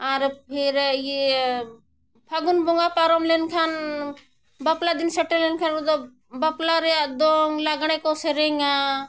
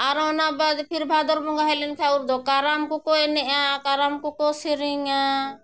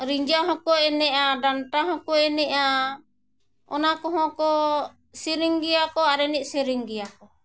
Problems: none marked